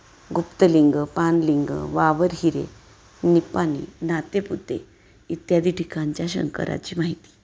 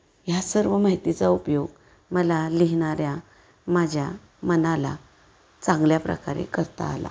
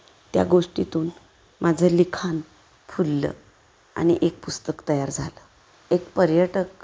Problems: background sounds at intervals